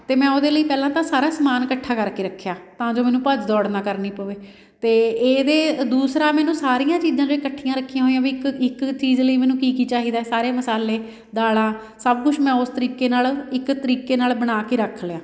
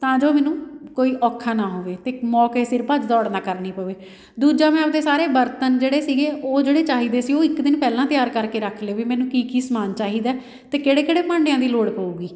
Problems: background sounds at intervals